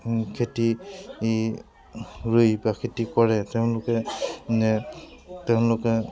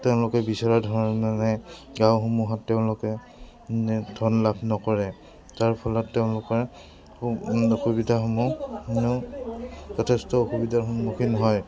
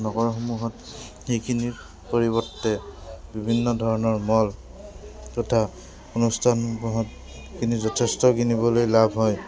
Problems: background sounds at intervals